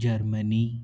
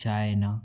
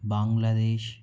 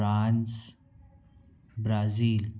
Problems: background sounds at intervals